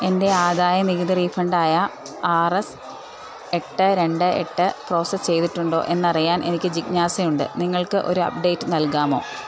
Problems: background sounds at intervals